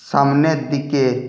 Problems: none marked